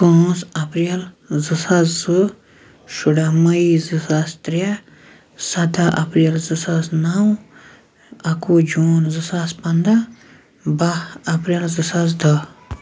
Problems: constant background noise